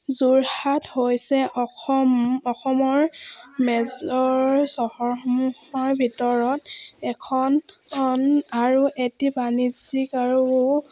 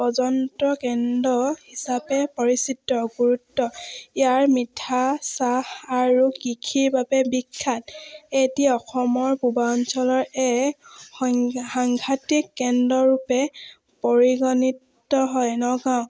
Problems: none marked